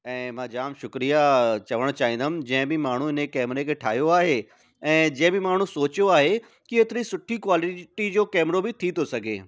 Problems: none marked